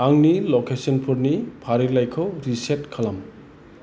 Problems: none marked